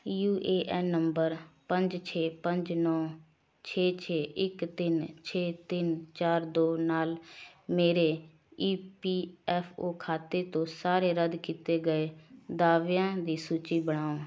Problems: none marked